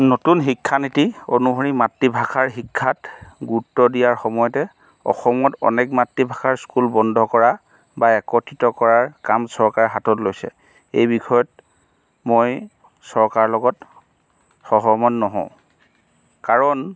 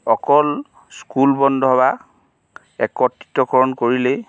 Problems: background sounds at intervals